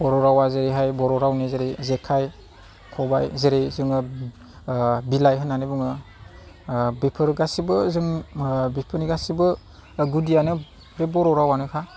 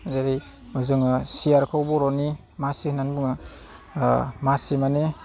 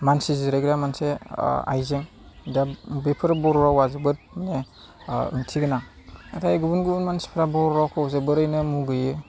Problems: low volume